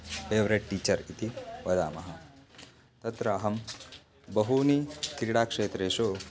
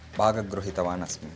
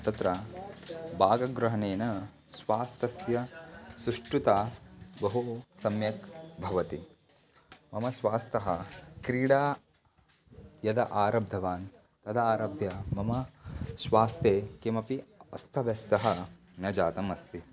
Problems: background sounds at intervals